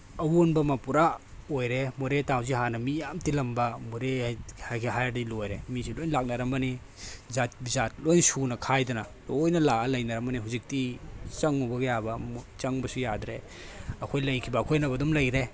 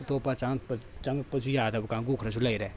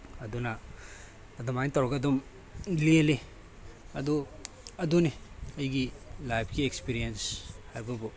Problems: background sounds at intervals